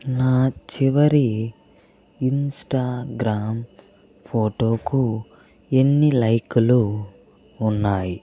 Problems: background conversations at intervals